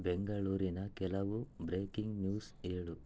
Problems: low volume